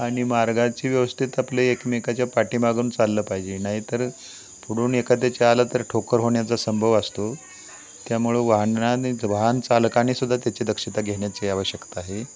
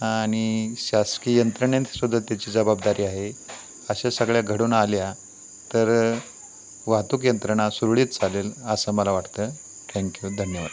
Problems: constant background noise, continuous background conversations